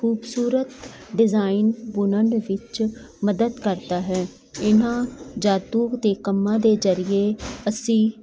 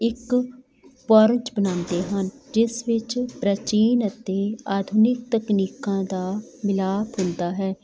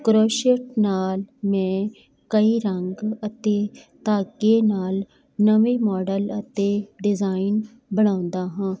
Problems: none marked